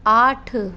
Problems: constant background noise